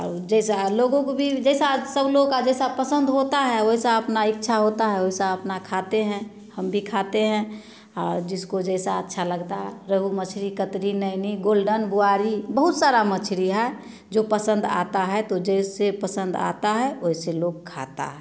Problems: none marked